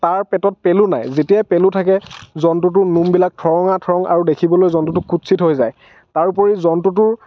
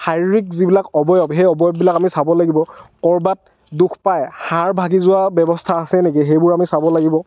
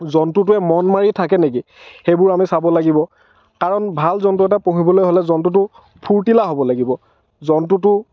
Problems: none marked